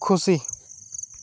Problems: constant background noise